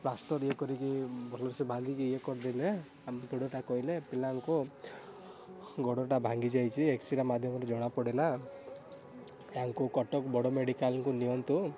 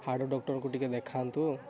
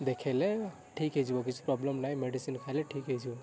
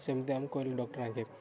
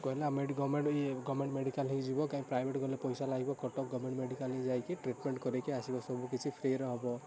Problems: none marked